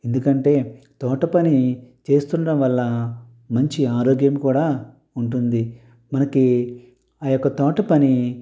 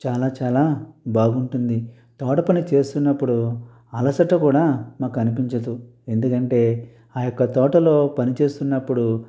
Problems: none marked